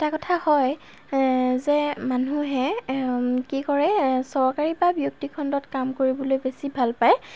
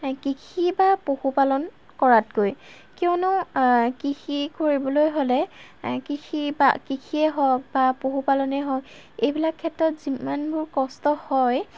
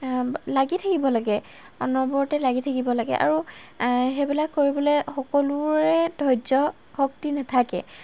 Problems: constant background noise